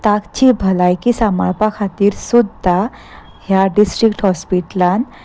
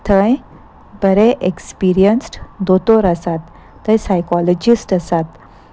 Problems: background sounds at intervals